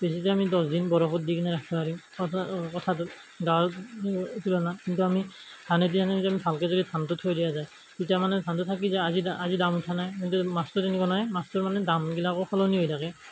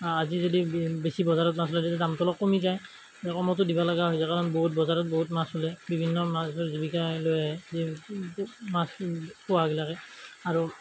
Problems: none marked